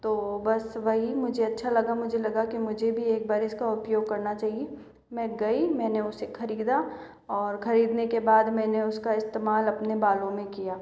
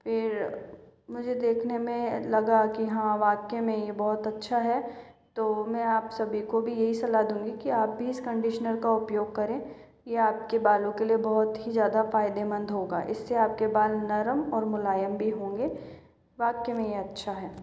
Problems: constant background noise, echo